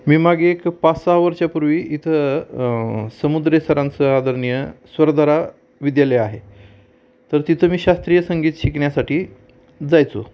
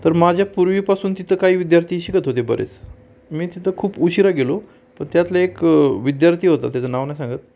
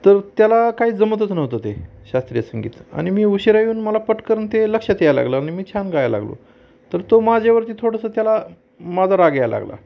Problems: constant background noise, background conversations at intervals